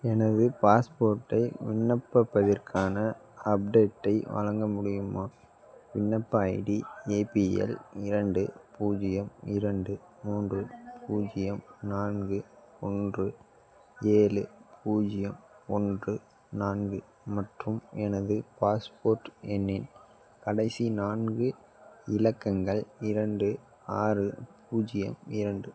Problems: none marked